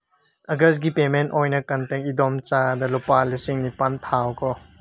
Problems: background sounds at intervals